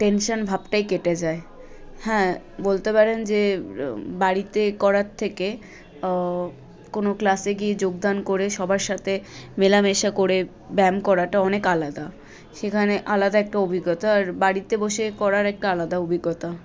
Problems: none marked